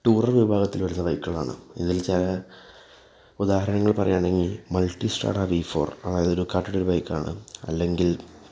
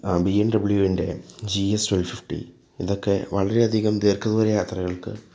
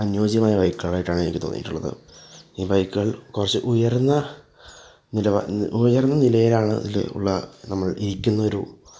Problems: background sounds at intervals